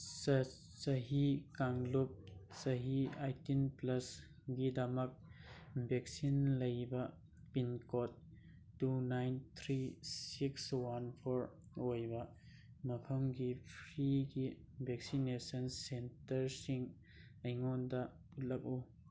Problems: none marked